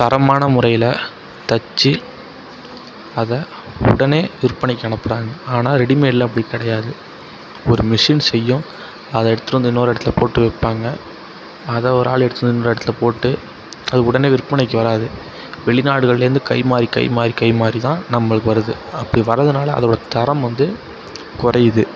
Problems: background sounds at intervals, continuous background conversations